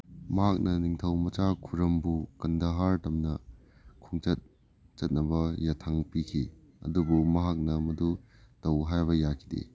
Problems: low volume